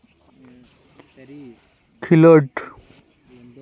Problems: continuous background conversations